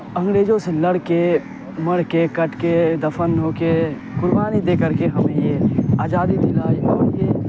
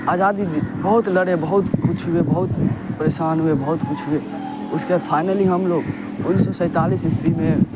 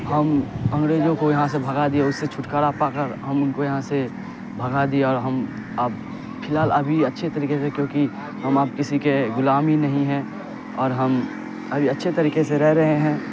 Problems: constant background noise, low volume